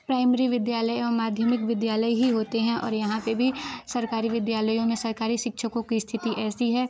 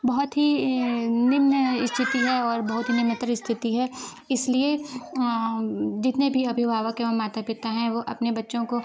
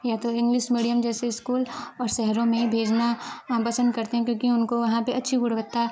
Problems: none marked